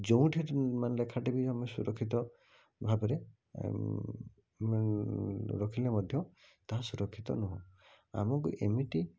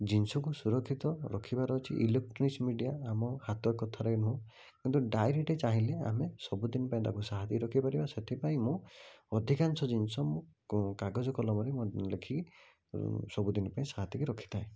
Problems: none marked